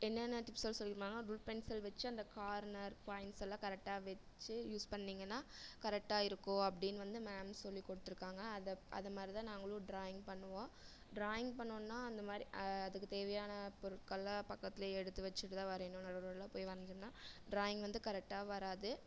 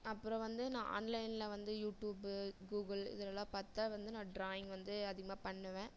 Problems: low volume